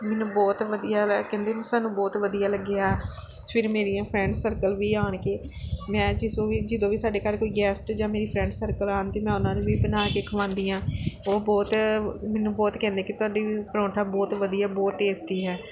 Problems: background sounds at intervals